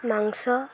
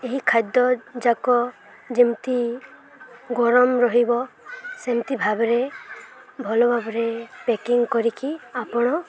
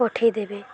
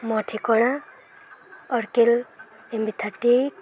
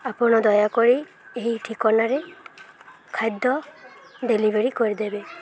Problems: none marked